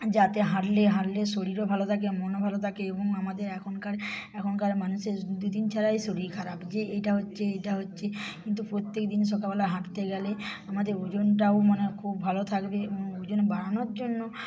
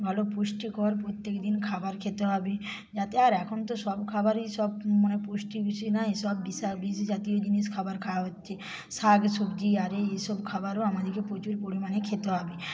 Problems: background sounds at intervals, background conversations at intervals